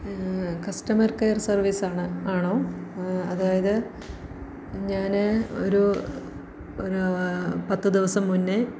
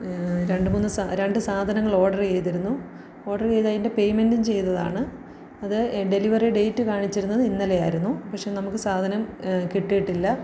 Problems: low volume